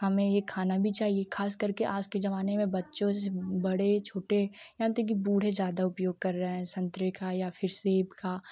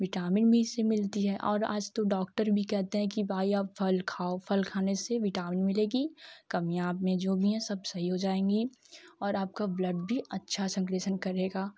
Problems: constant background noise, low volume